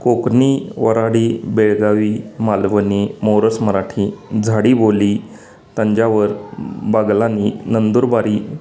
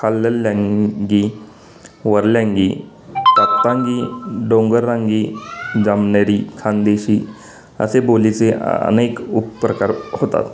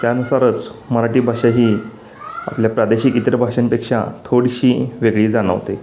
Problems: constant background noise